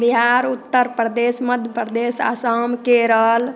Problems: constant background noise, background conversations at intervals